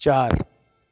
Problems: constant background noise